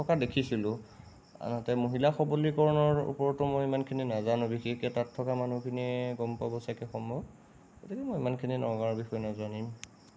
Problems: none marked